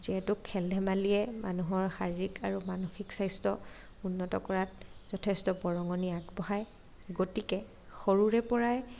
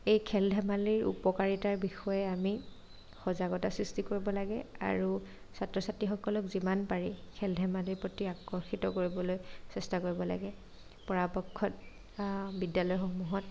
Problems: none marked